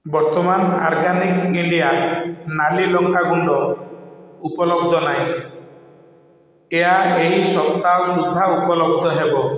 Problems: echo